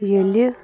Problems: constant background noise